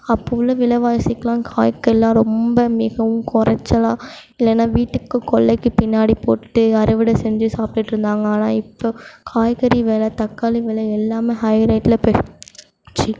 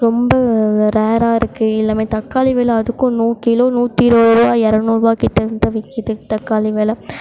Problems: background sounds at intervals